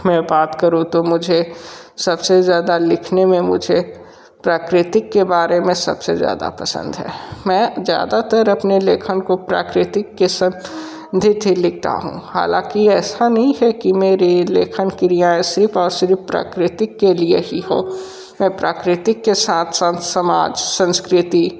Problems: constant background noise